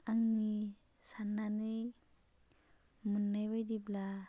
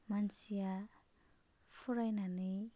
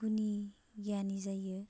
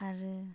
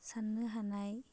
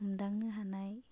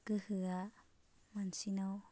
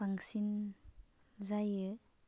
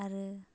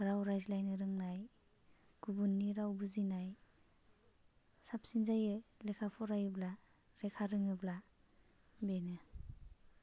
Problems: low volume